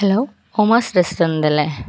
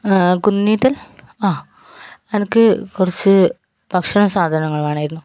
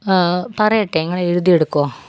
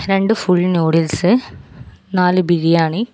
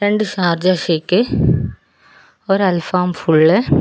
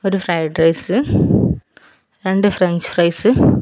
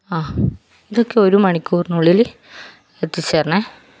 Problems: background sounds at intervals